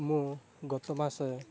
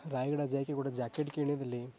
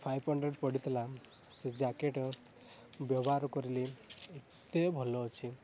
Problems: constant background noise